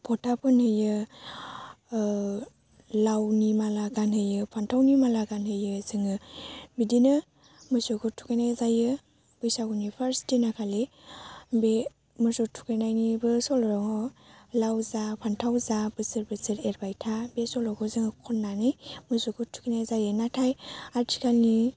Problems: low volume